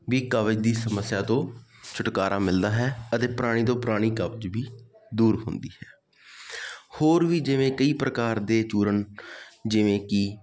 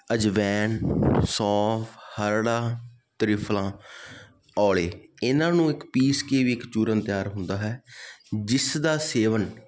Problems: constant background noise